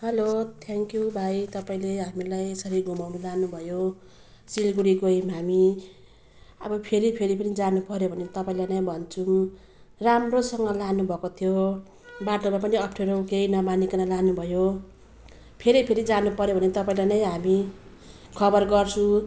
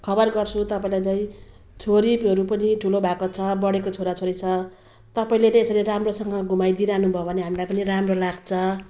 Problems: background sounds at intervals